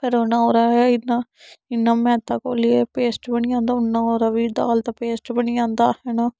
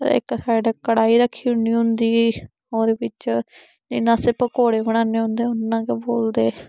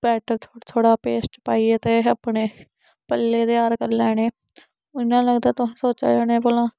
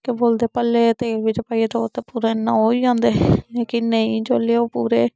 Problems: none marked